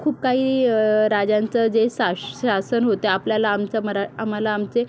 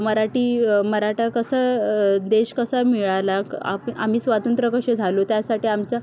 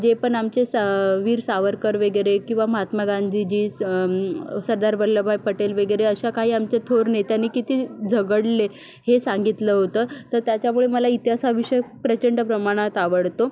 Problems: none marked